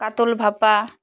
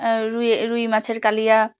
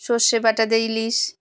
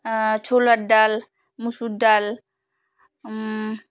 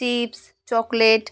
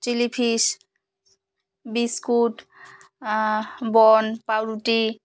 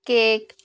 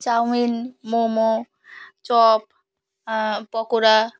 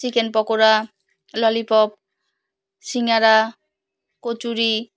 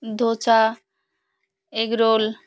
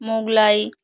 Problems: none marked